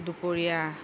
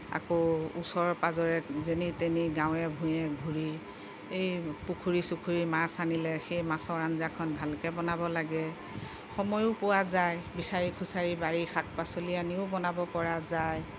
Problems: none marked